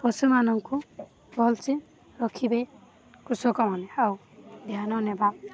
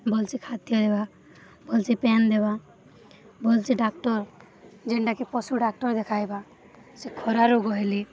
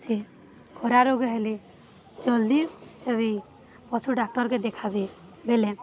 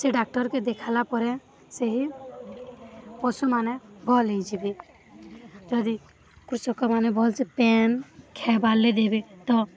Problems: constant background noise